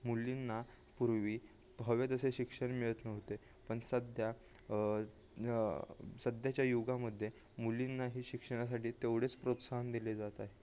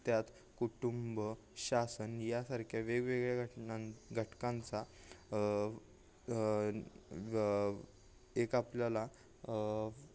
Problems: none marked